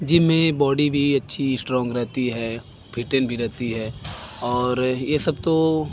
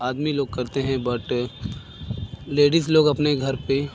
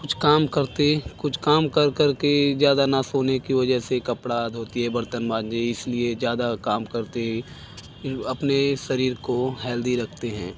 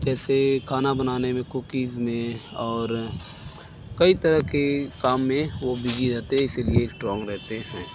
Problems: background sounds at intervals